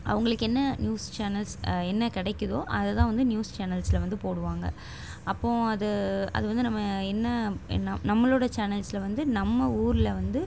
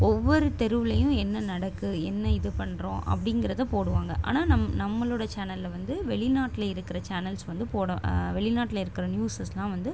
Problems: constant background noise